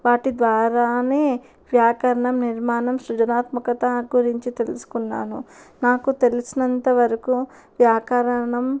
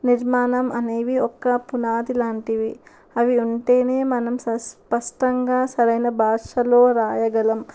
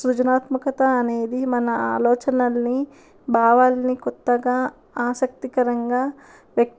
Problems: background sounds at intervals